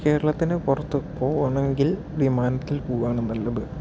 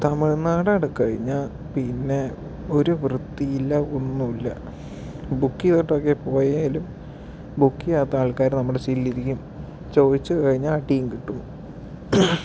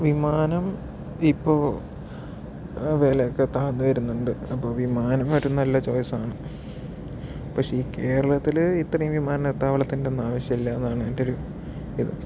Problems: background sounds at intervals, low volume